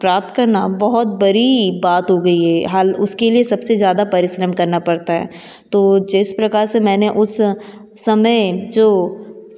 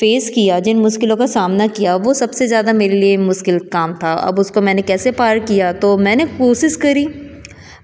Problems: none marked